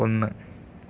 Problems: low volume